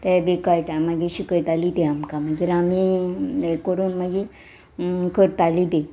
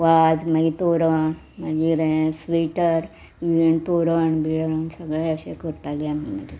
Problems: background sounds at intervals